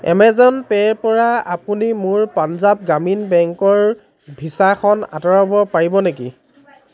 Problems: constant background noise